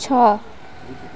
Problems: none marked